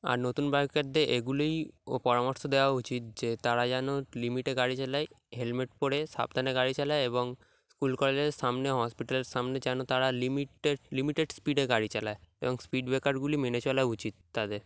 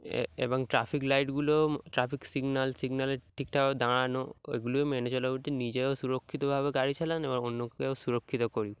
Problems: background sounds at intervals